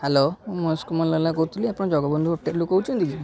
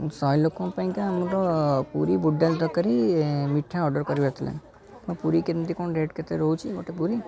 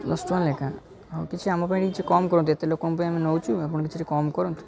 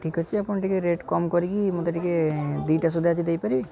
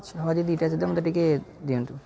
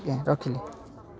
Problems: constant background noise, continuous background conversations